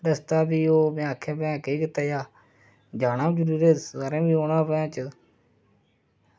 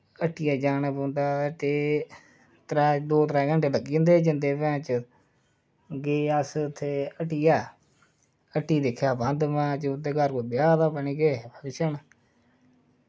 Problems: low volume